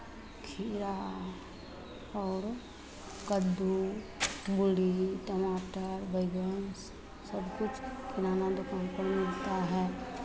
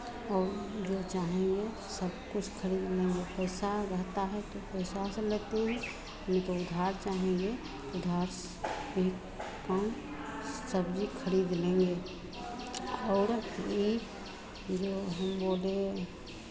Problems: none marked